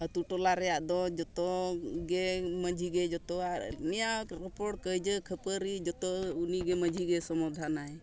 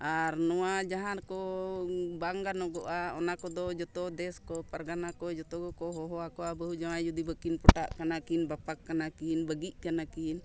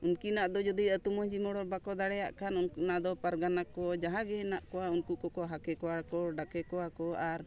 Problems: none marked